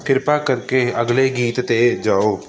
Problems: constant background noise